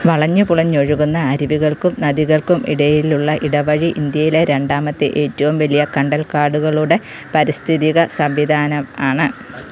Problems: constant background noise